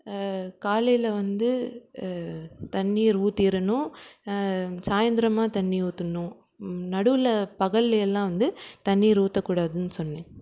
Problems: background sounds at intervals